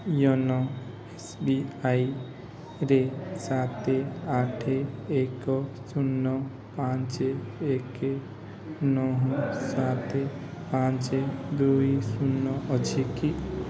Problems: constant background noise